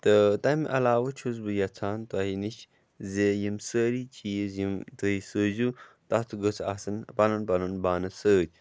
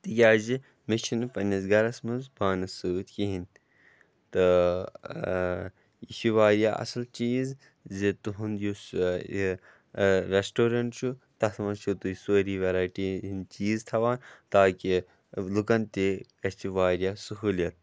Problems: background sounds at intervals